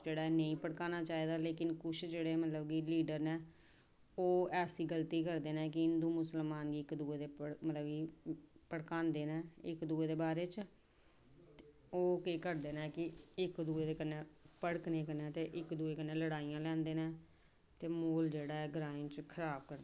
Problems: background sounds at intervals, background conversations at intervals